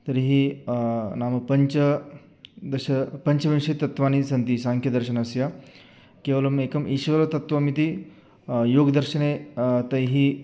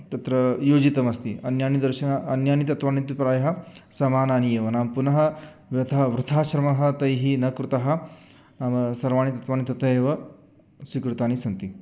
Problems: background sounds at intervals